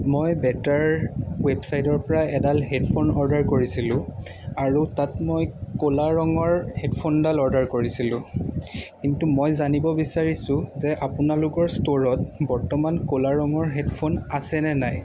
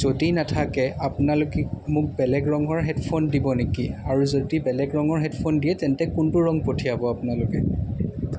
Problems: background sounds at intervals, background conversations at intervals